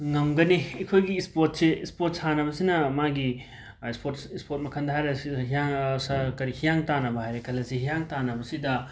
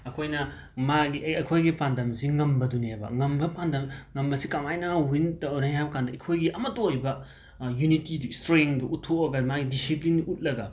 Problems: background sounds at intervals